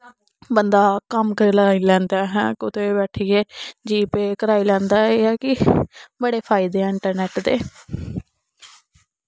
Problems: none marked